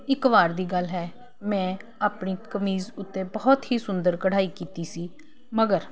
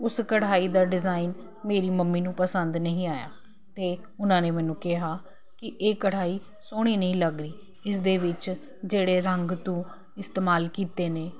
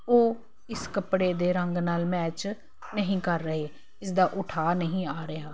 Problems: constant background noise